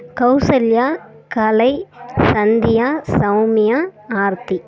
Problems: background conversations at intervals